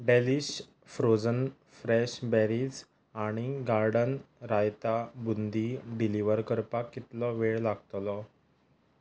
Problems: background sounds at intervals